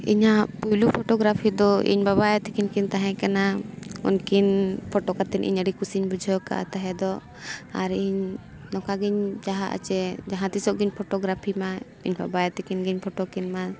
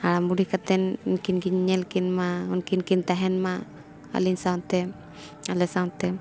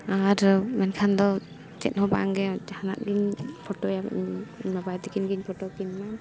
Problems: constant background noise